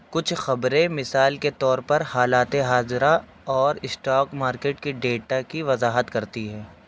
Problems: constant background noise